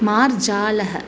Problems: constant background noise